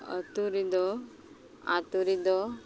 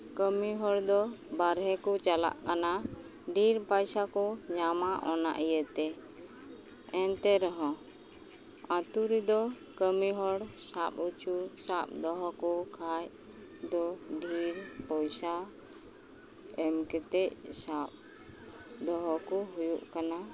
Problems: background sounds at intervals